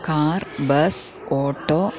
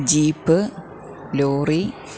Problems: continuous background conversations, low volume